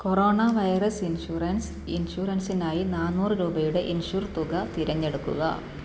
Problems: none marked